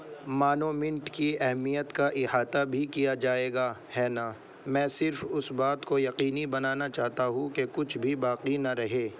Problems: constant background noise